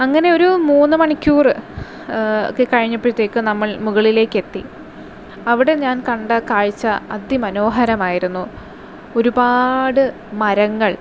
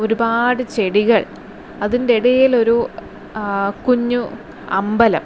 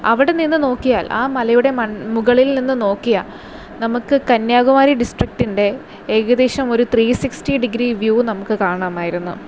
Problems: constant background noise